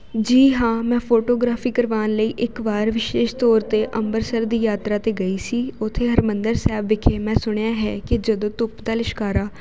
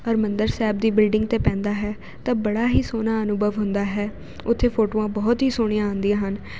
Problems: constant background noise